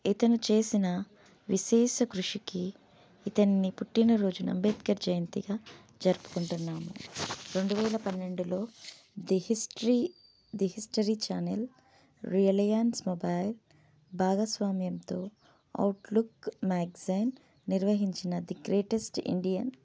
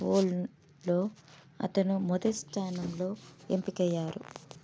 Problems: none marked